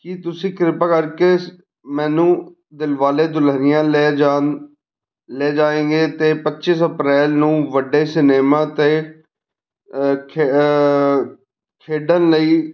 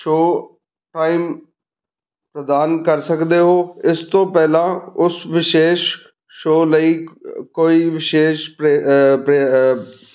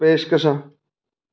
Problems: background conversations at intervals